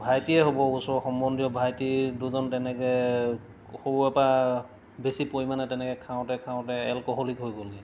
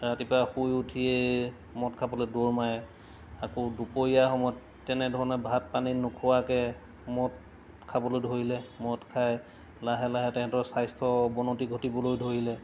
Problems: background sounds at intervals